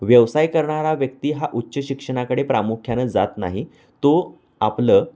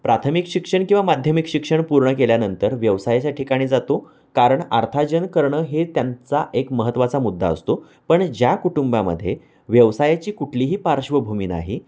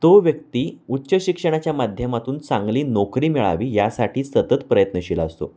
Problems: constant background noise